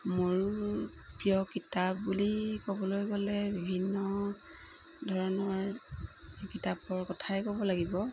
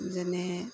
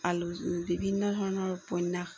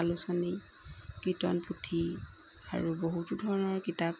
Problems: constant background noise